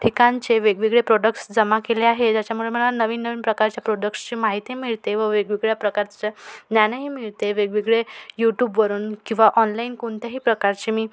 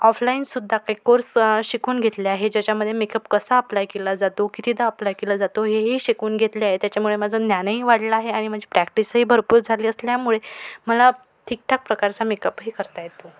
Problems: none marked